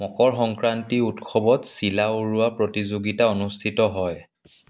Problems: background sounds at intervals